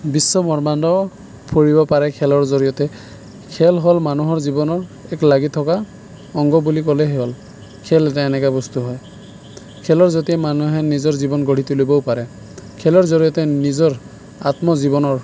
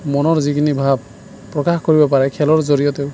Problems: none marked